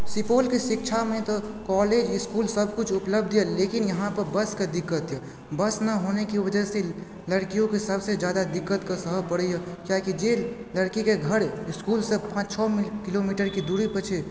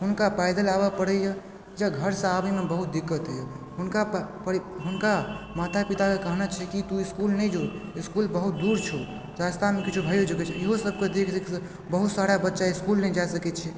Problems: background sounds at intervals, background conversations at intervals